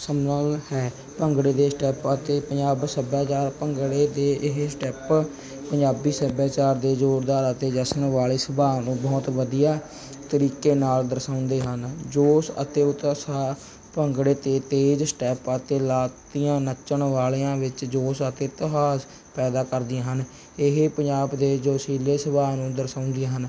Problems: background sounds at intervals